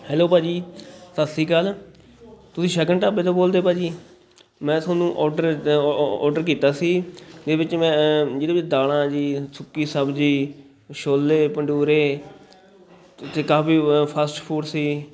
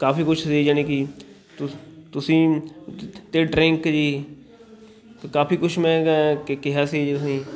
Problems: constant background noise, continuous background conversations